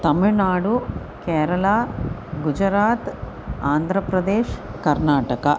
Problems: none marked